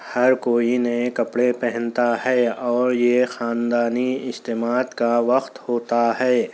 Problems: constant background noise